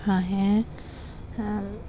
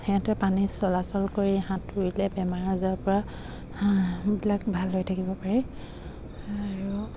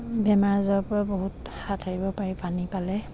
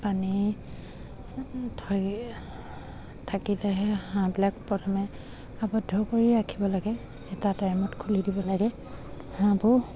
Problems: constant background noise